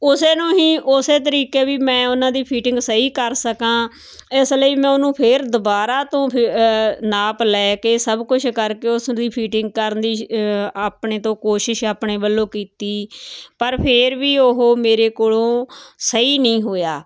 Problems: constant background noise